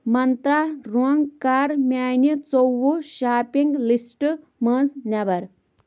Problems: background sounds at intervals